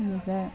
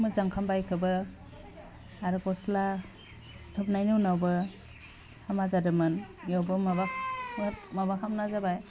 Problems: constant background noise